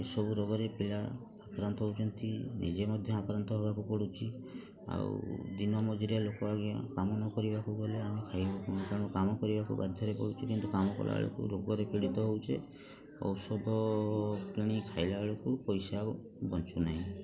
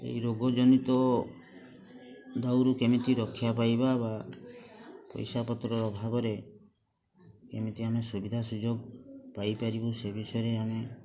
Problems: constant background noise, continuous background conversations